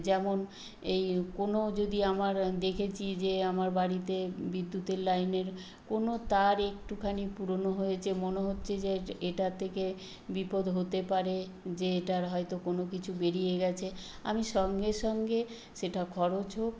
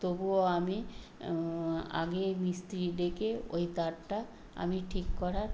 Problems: constant background noise